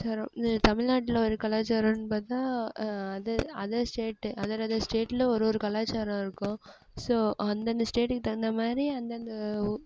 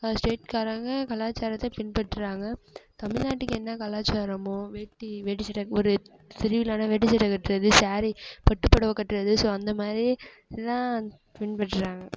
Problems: background sounds at intervals